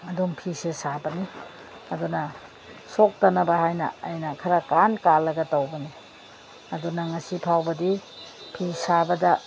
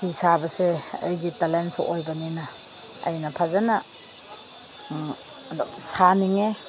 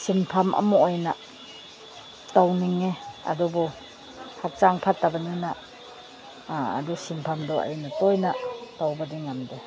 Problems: constant background noise